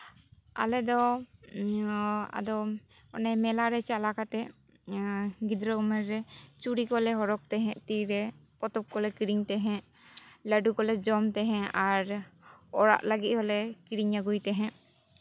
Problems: none marked